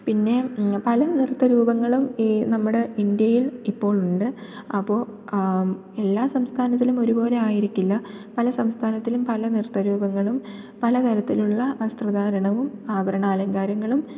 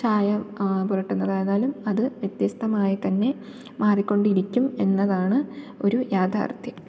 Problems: low volume